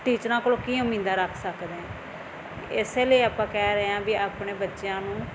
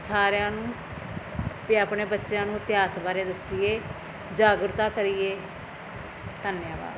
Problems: constant background noise